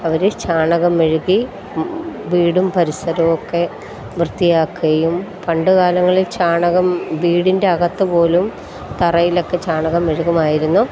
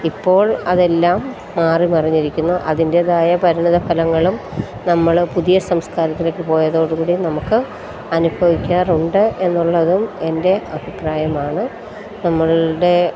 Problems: constant background noise